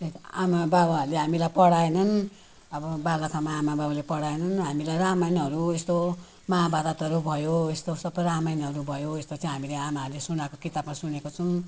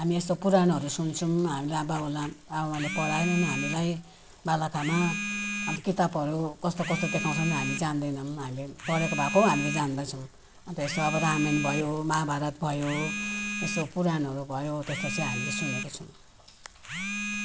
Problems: constant background noise